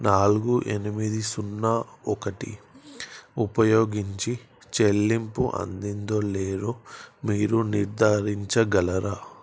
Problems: constant background noise